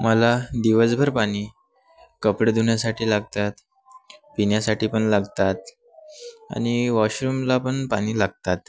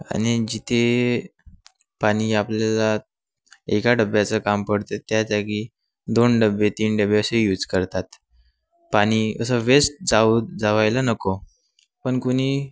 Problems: none marked